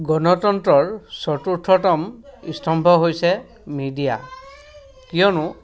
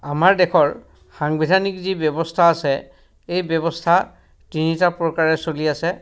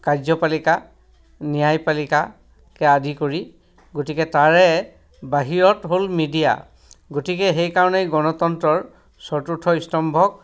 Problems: background sounds at intervals, background conversations at intervals